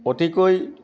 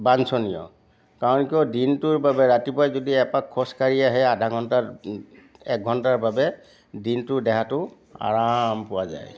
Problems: background sounds at intervals, background conversations at intervals